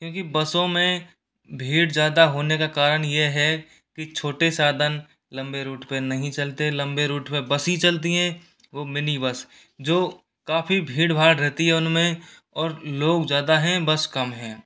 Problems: background sounds at intervals